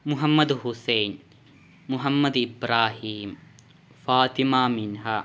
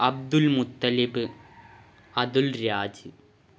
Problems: background sounds at intervals